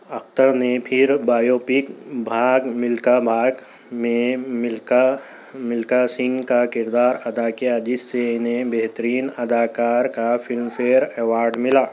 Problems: constant background noise, background conversations at intervals